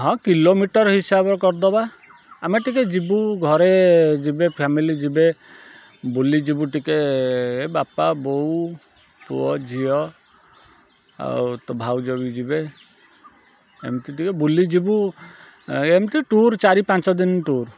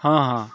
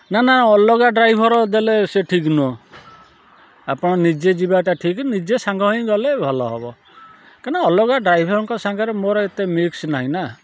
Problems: none marked